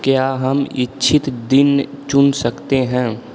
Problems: none marked